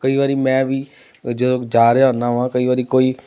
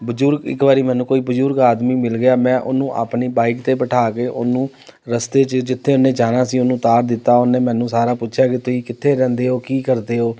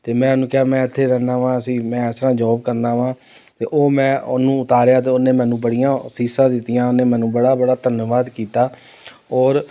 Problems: none marked